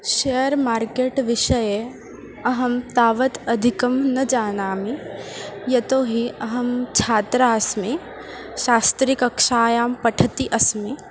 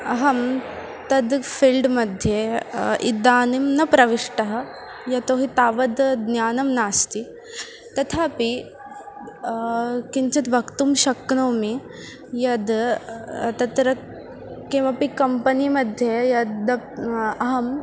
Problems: constant background noise, continuous background conversations